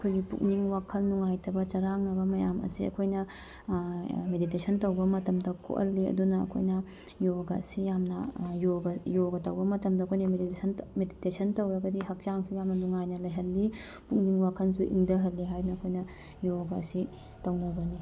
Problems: background sounds at intervals